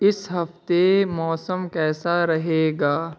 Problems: none marked